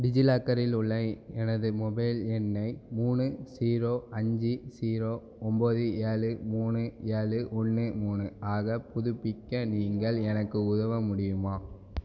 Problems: none marked